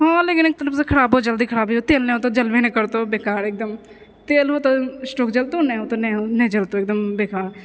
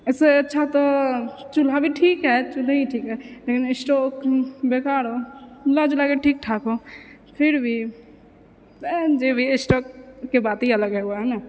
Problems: none marked